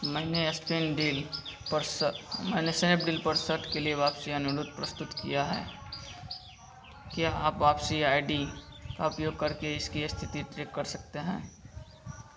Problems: none marked